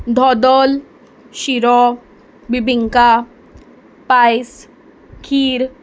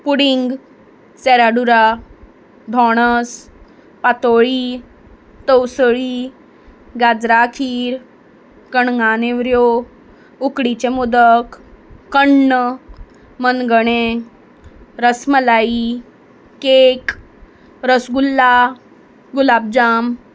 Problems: background sounds at intervals